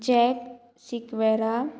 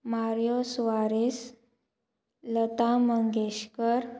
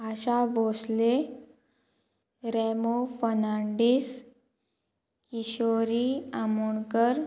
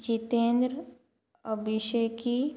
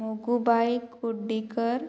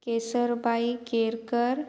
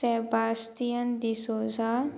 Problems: constant background noise